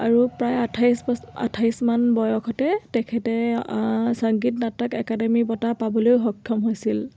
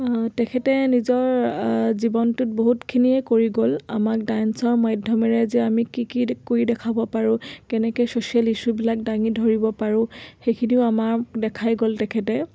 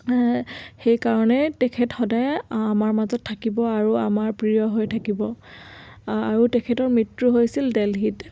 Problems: constant background noise